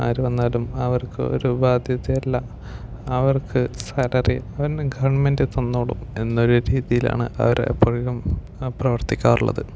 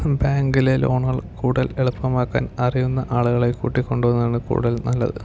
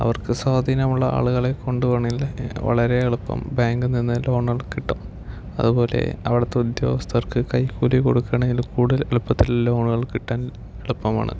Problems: low volume